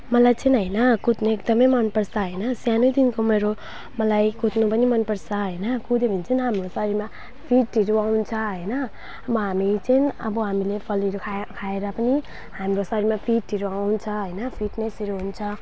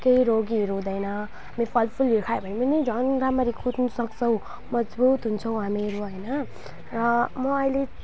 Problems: background sounds at intervals